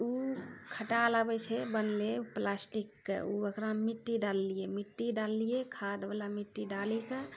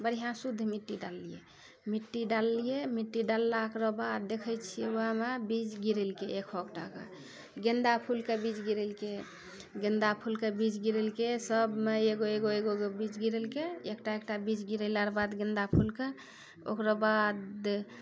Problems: none marked